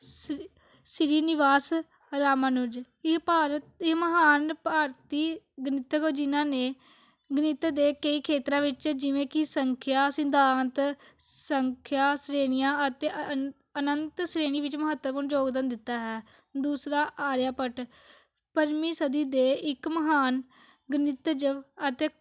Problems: none marked